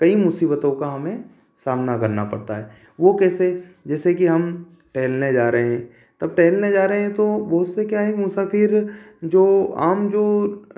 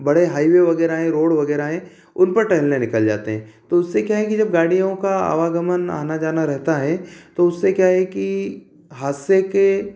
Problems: constant background noise